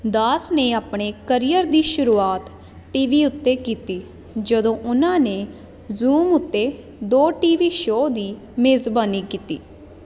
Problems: constant background noise